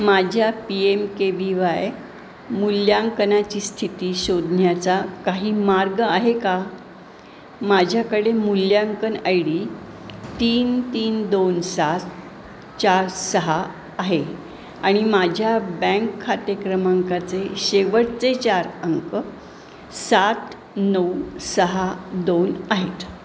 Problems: constant background noise